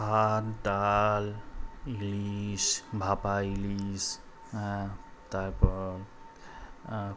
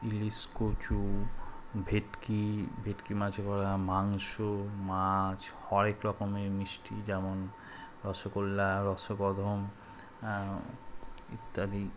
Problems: constant background noise